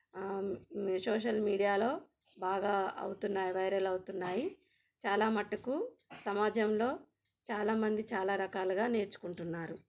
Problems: background sounds at intervals